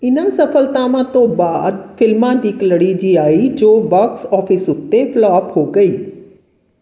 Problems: background sounds at intervals